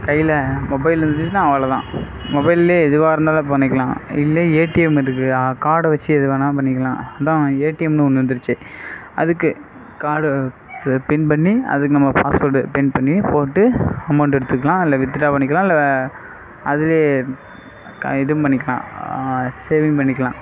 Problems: background sounds at intervals